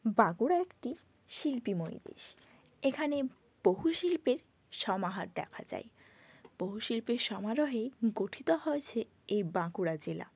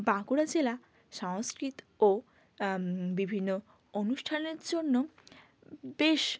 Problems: constant background noise